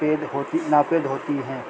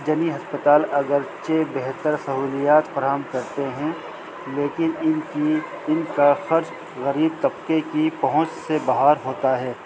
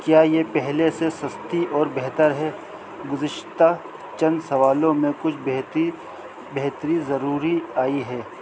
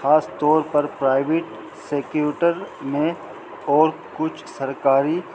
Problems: constant background noise